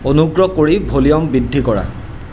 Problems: none marked